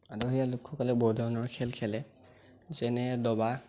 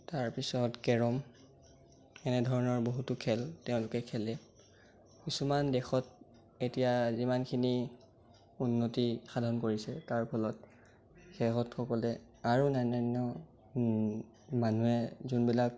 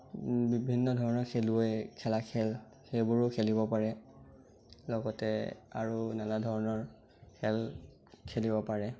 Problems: constant background noise